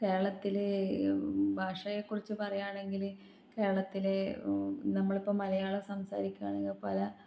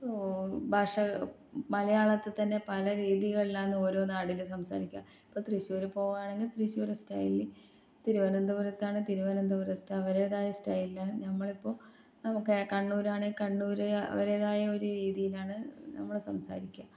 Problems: low volume